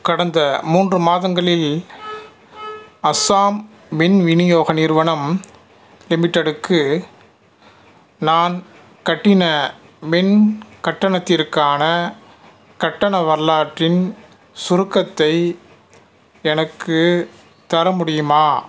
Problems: none marked